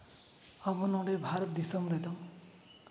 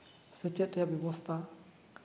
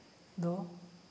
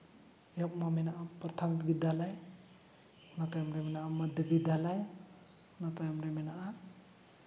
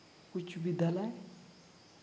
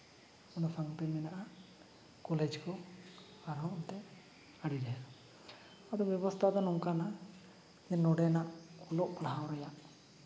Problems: none marked